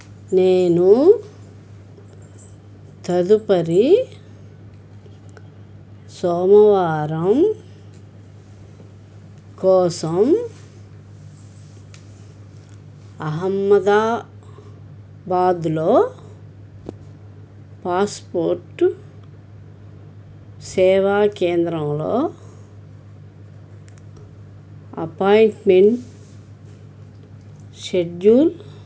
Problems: none marked